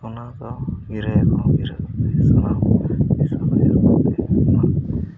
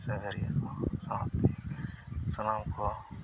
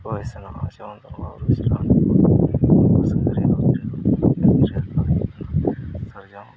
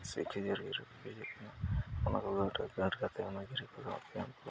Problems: low volume